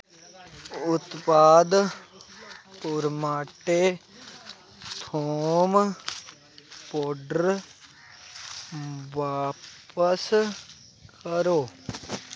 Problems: constant background noise